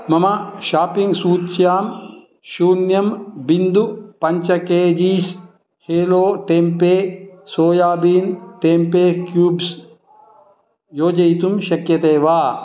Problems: background conversations at intervals